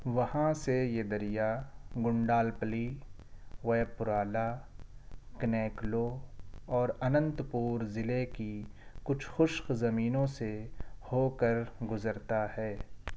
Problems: none marked